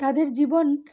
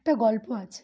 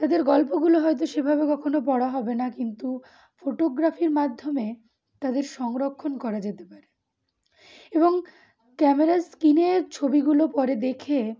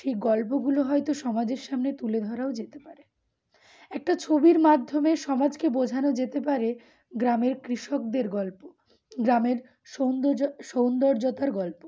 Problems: background sounds at intervals